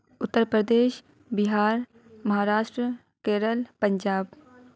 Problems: none marked